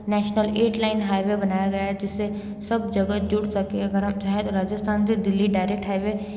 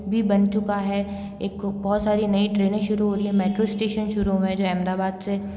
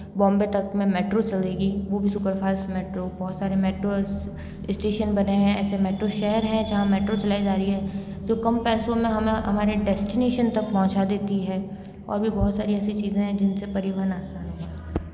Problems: background sounds at intervals, background conversations at intervals